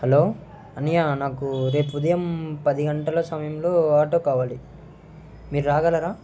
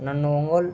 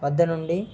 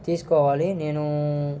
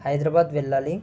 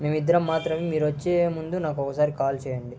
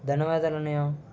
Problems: constant background noise